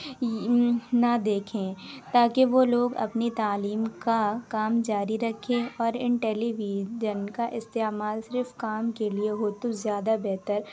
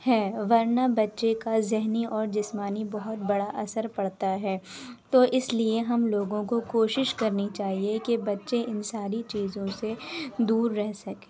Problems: constant background noise, background conversations at intervals